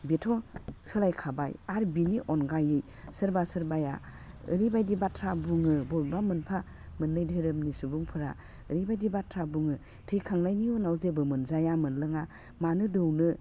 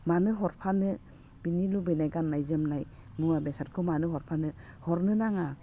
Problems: background sounds at intervals, low volume